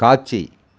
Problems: none marked